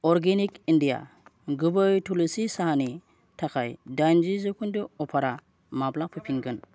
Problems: constant background noise